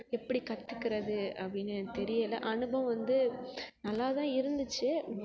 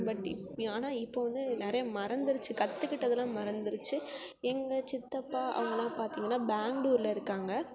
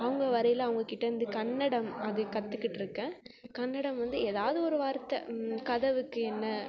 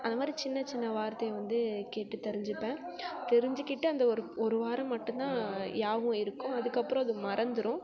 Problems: background sounds at intervals, background conversations at intervals